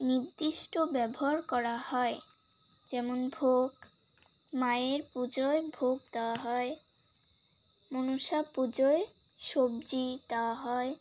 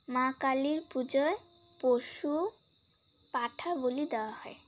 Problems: background sounds at intervals